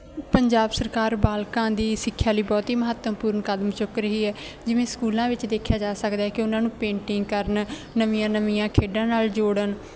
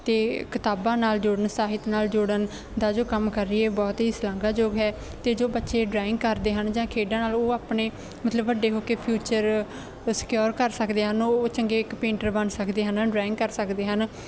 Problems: none marked